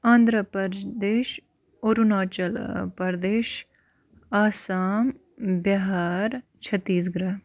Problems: constant background noise